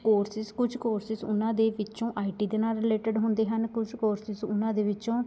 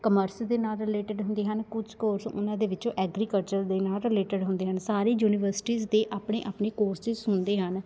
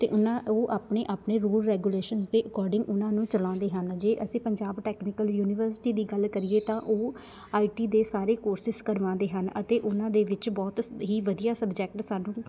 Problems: constant background noise